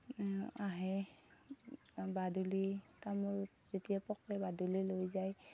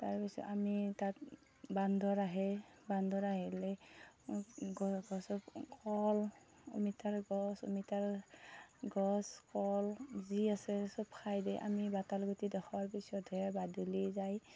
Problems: none marked